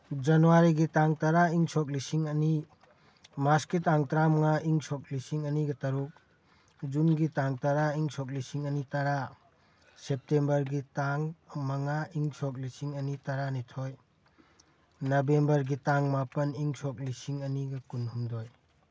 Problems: background sounds at intervals